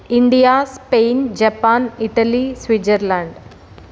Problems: none marked